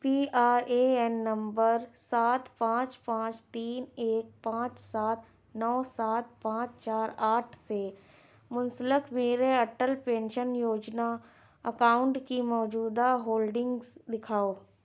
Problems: none marked